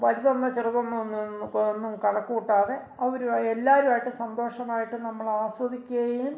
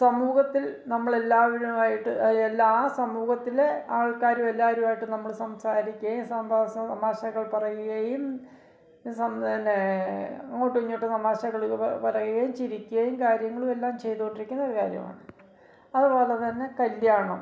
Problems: background sounds at intervals